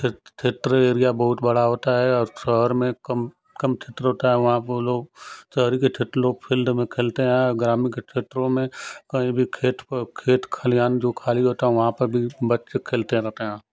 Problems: none marked